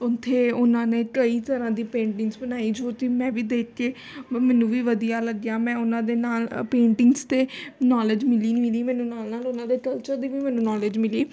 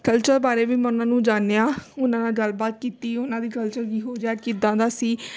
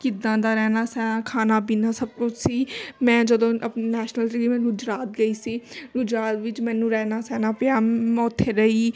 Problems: constant background noise